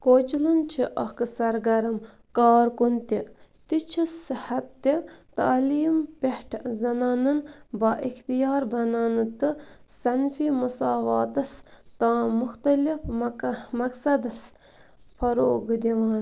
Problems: background sounds at intervals